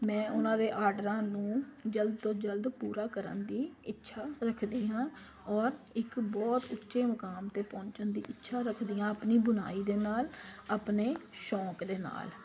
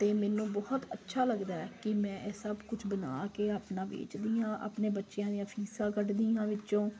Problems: constant background noise